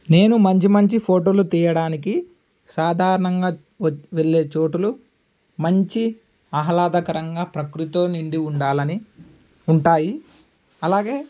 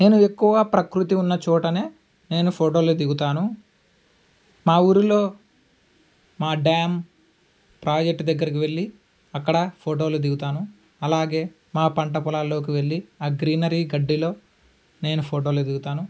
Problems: none marked